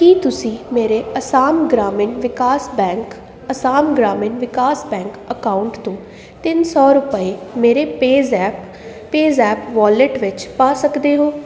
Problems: constant background noise